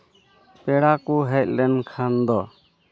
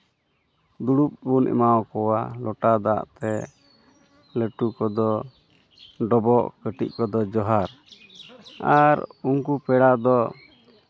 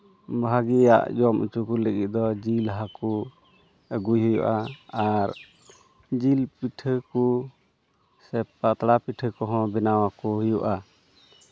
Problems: none marked